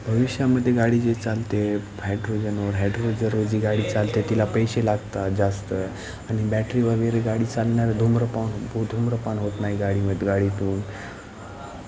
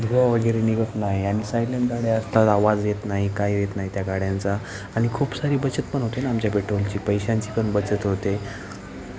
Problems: constant background noise, continuous background conversations